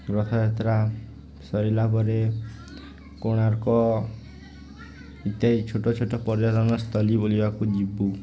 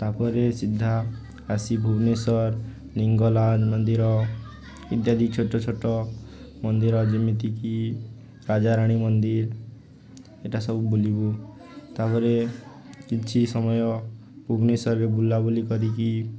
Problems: constant background noise